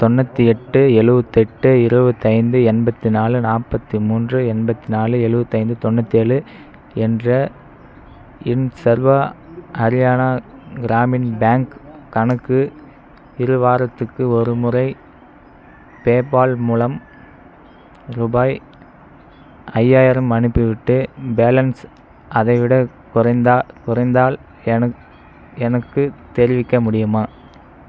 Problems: none marked